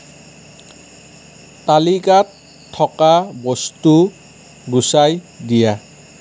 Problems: none marked